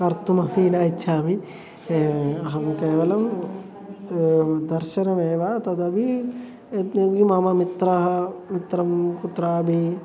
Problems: constant background noise, continuous background conversations